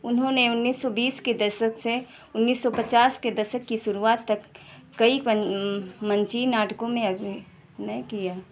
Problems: none marked